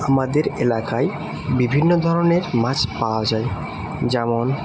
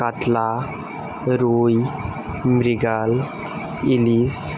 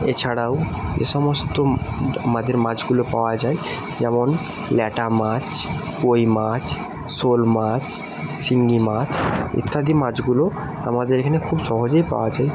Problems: constant background noise